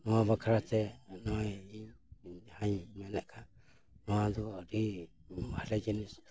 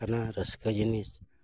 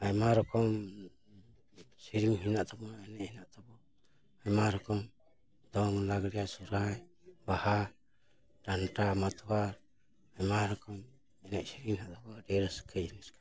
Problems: background sounds at intervals